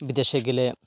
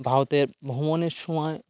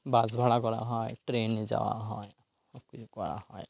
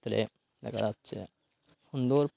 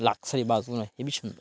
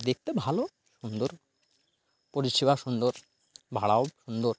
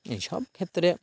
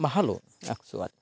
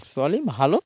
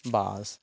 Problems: none marked